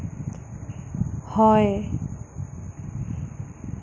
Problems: constant background noise